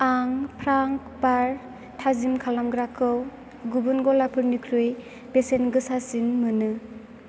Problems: constant background noise